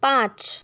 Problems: none marked